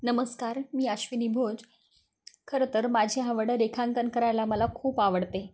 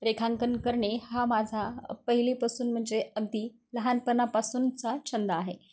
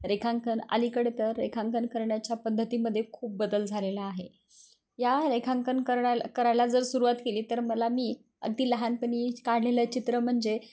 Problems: none marked